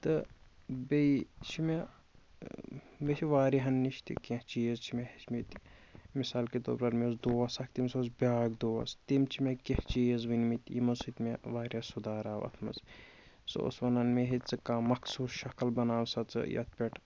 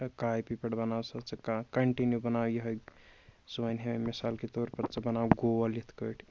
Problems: constant background noise